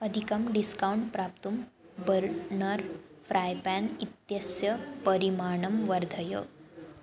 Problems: constant background noise